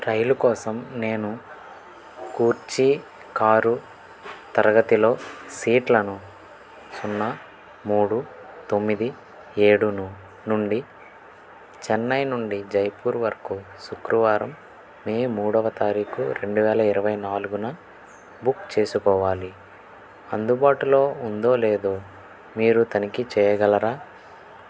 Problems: constant background noise